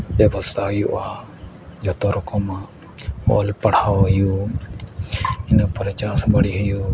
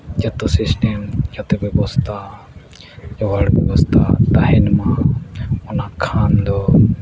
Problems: constant background noise, low volume